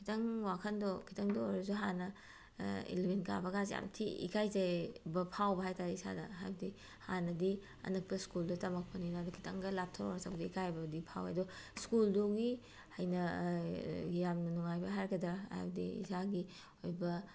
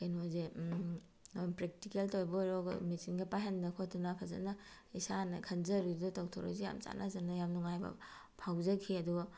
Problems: none marked